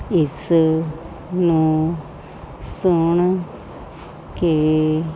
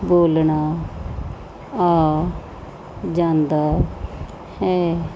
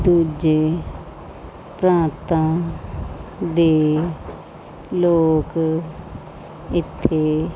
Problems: constant background noise